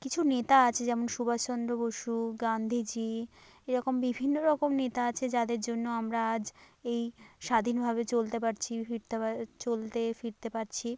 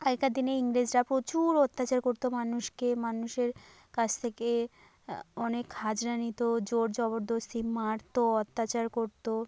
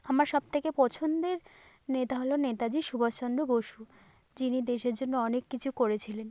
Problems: constant background noise